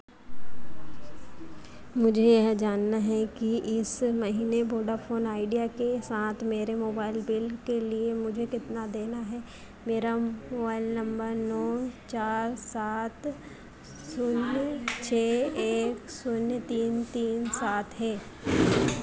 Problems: constant background noise